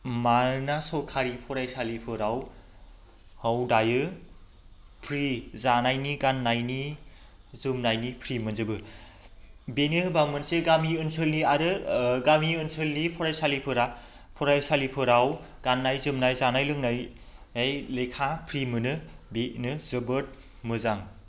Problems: constant background noise